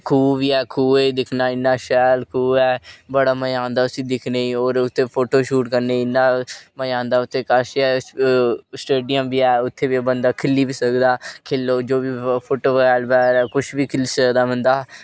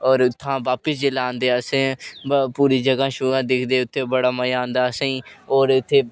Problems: none marked